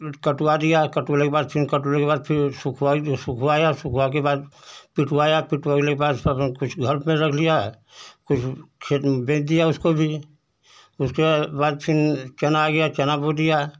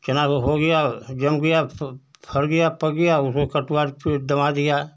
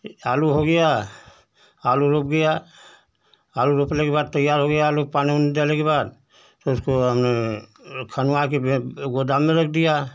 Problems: none marked